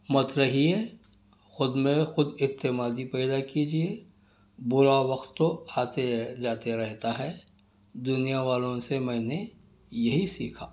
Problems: none marked